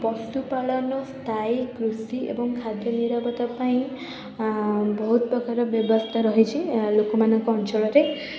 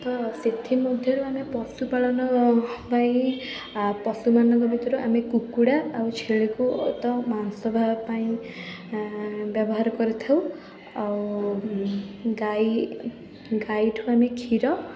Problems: none marked